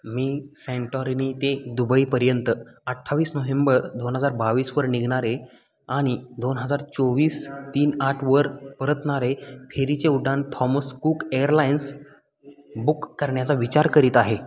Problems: constant background noise, background conversations at intervals